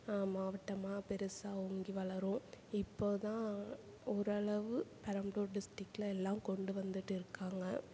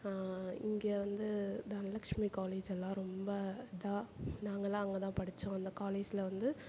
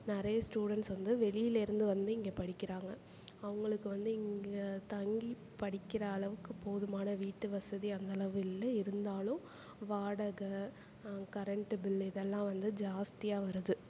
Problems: background conversations at intervals